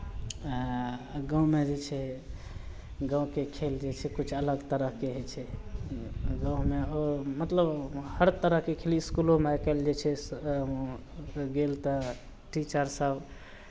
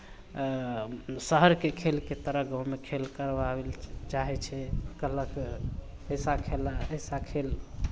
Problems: none marked